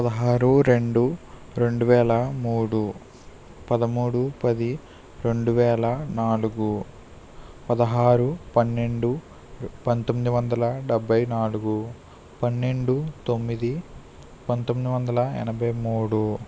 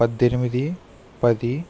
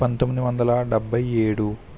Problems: constant background noise